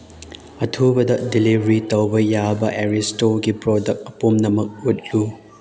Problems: background sounds at intervals